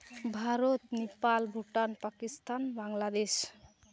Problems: none marked